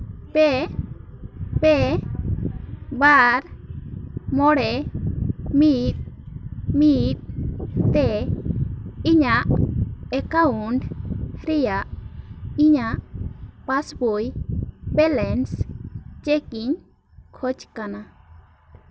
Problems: continuous background conversations